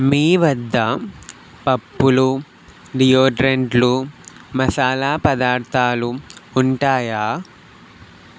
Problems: none marked